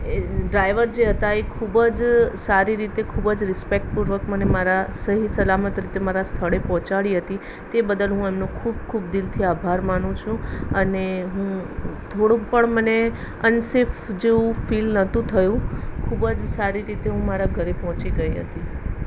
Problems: constant background noise